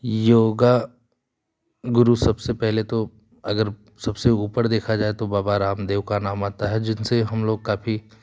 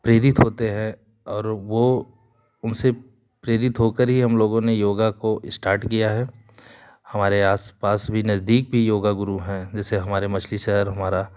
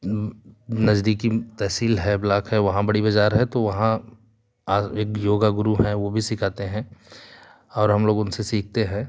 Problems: none marked